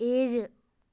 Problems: low volume